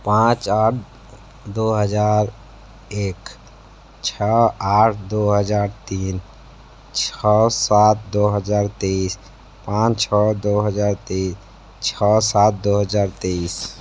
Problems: constant background noise